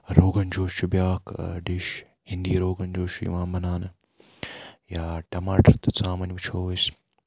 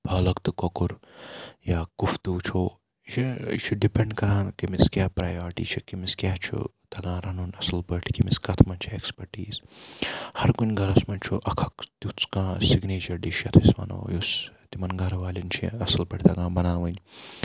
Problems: background sounds at intervals